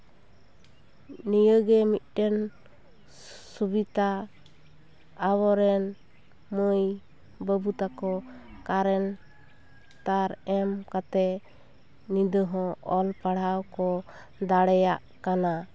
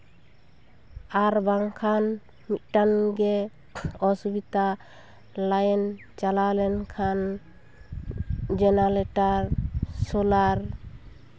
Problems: constant background noise, background conversations at intervals